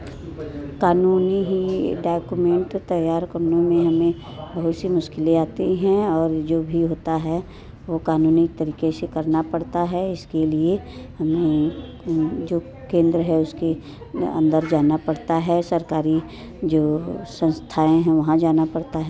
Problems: constant background noise